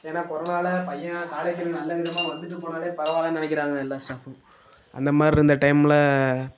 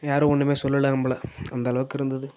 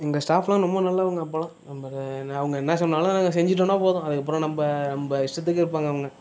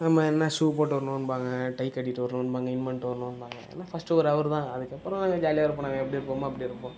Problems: background sounds at intervals, low volume